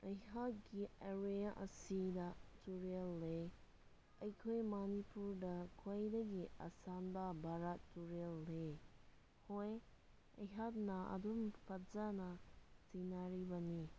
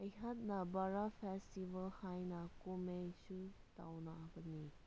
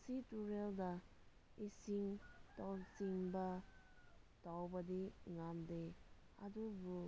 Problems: low volume